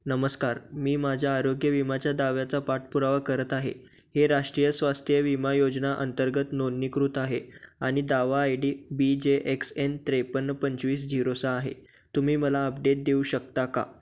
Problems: background sounds at intervals